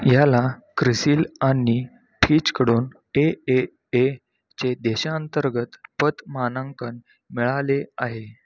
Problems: background sounds at intervals, background conversations at intervals